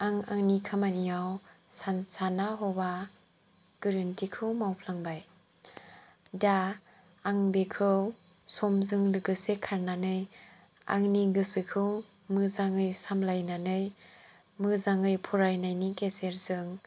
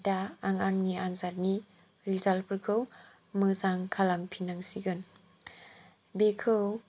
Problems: low volume